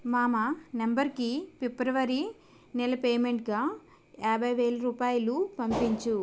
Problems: constant background noise